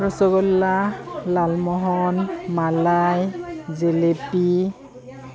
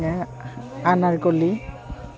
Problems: continuous background conversations